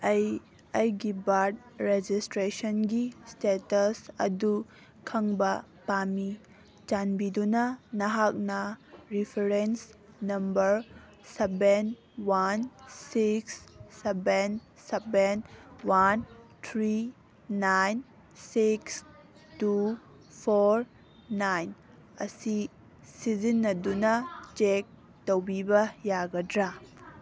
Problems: background sounds at intervals